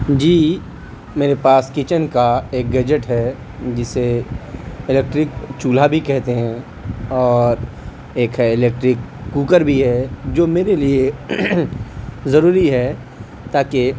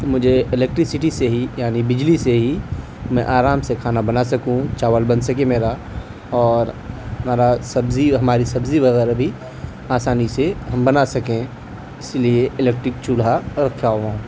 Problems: constant background noise